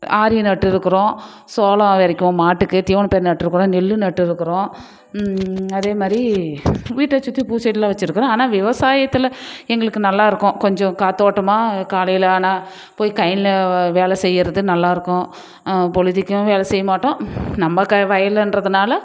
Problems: none marked